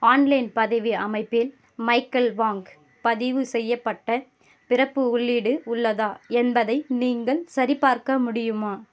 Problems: none marked